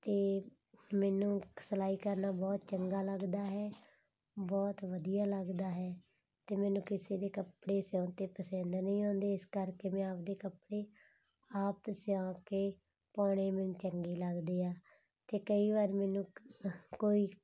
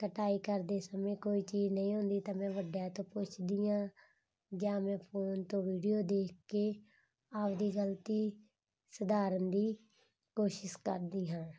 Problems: none marked